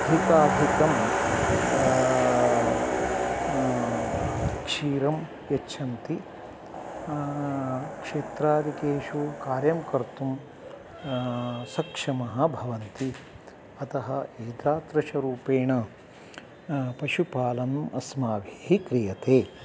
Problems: background sounds at intervals